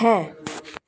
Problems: constant background noise